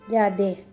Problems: constant background noise